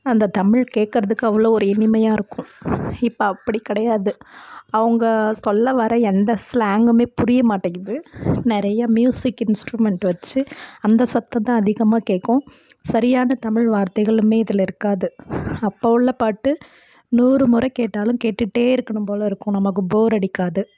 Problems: constant background noise